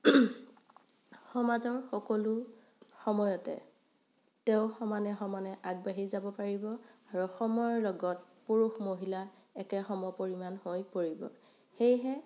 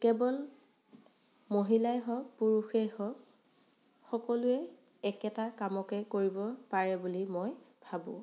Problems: none marked